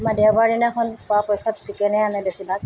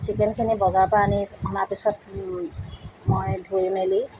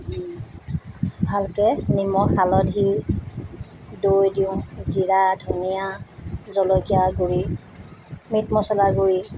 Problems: none marked